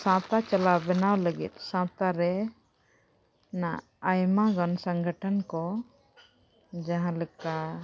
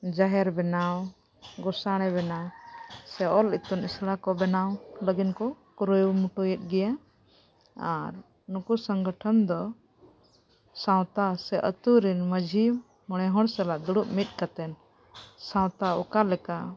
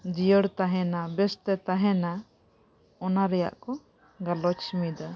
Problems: background sounds at intervals